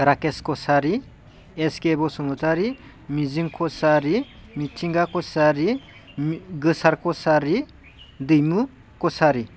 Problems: none marked